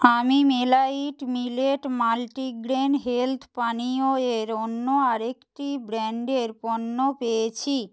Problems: none marked